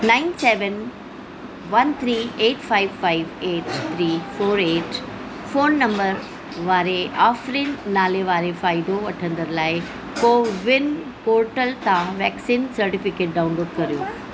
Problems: constant background noise, background conversations at intervals